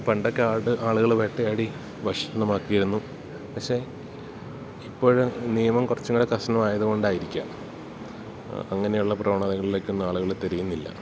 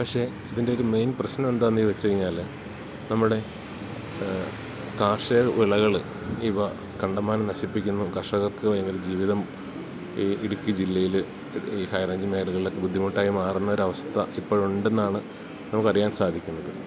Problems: constant background noise